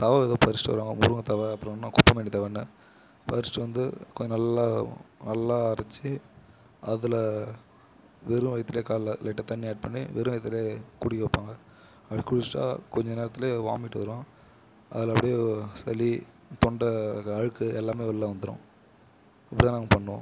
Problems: background sounds at intervals